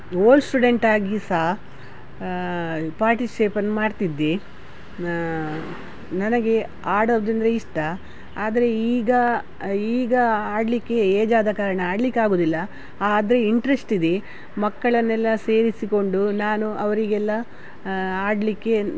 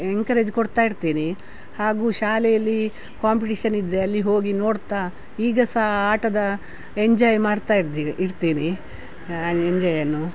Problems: none marked